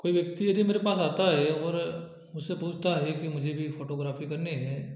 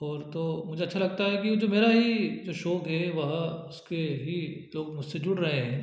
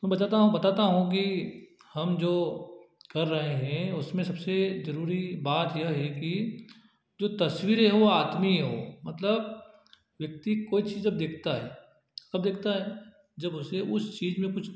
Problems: none marked